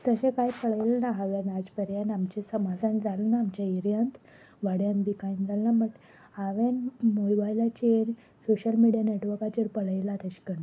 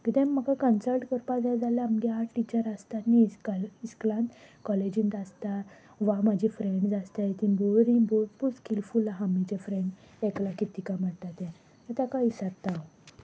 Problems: constant background noise